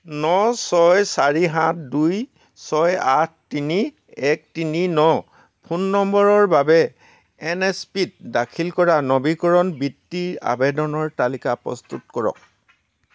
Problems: constant background noise